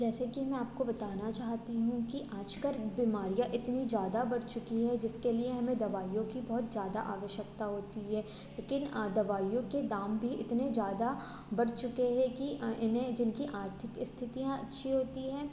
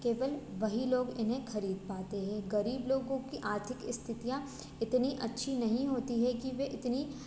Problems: none marked